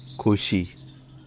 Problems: constant background noise